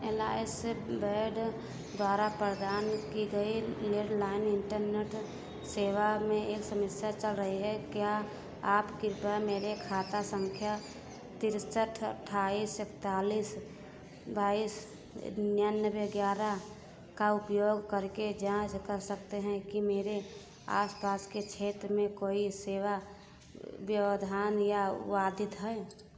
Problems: background sounds at intervals